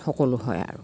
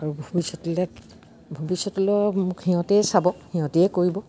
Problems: none marked